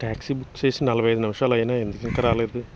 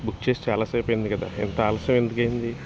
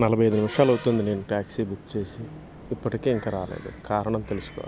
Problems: constant background noise